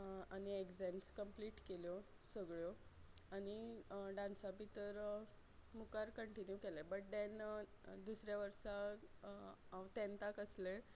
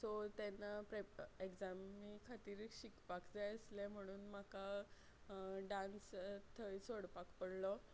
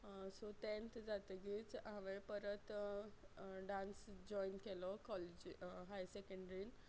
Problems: low volume